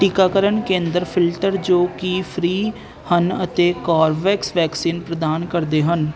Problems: constant background noise